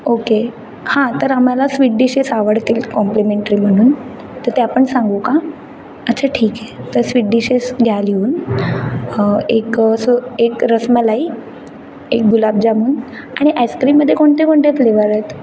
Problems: background sounds at intervals, background conversations at intervals